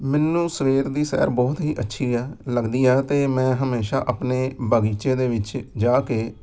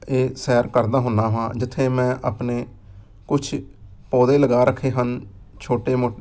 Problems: background sounds at intervals